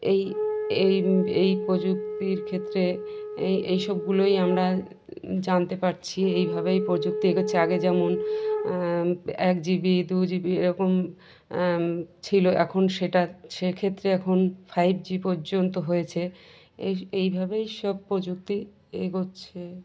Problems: continuous background conversations